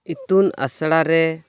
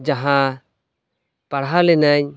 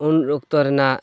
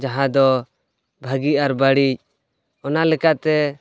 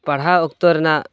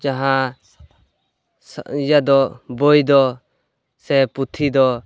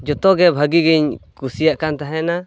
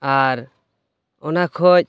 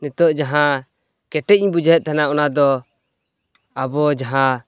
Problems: none marked